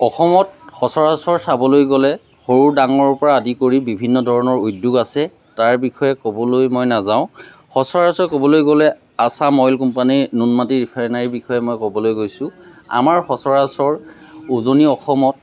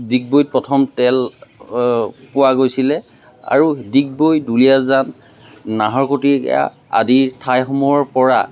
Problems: none marked